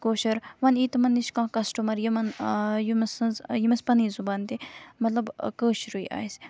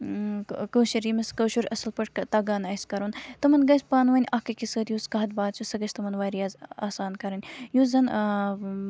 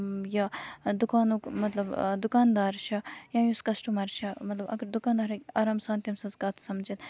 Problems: background sounds at intervals